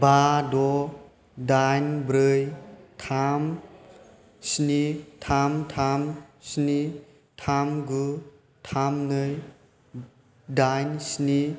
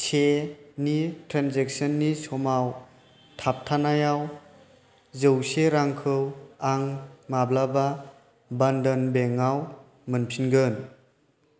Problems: constant background noise